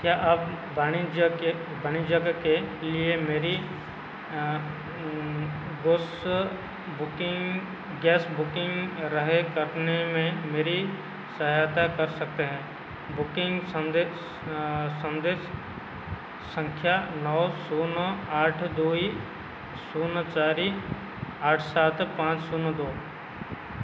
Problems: constant background noise